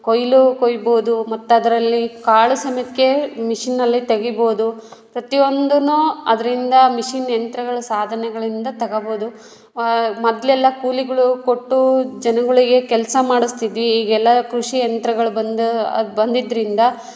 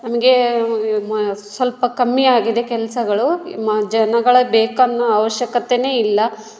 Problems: none marked